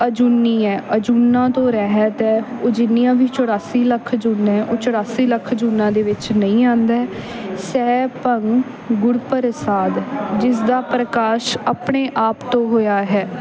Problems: background sounds at intervals, background conversations at intervals